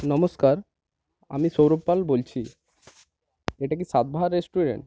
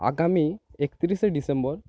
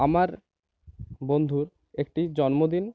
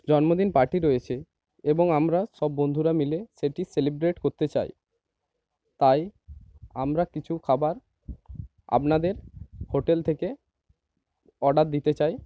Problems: constant background noise